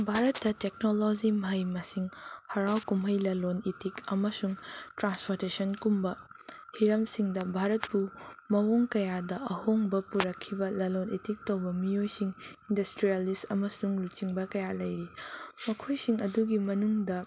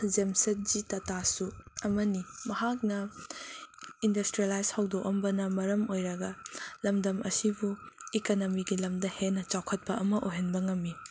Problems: constant background noise